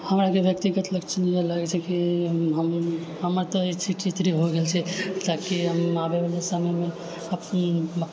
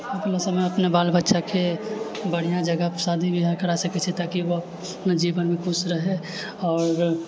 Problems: none marked